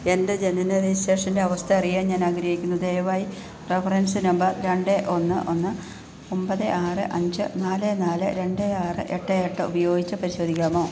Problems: none marked